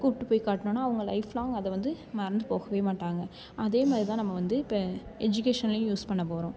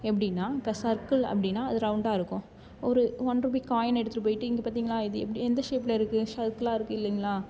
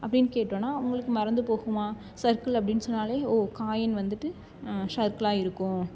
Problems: background sounds at intervals